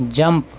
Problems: none marked